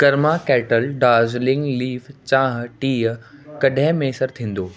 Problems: constant background noise